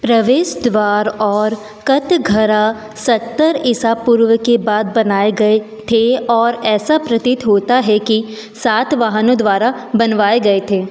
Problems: background sounds at intervals